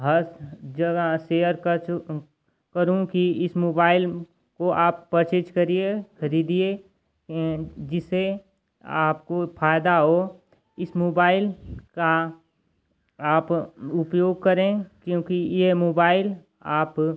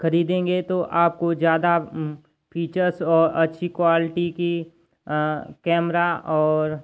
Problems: constant background noise